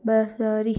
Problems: none marked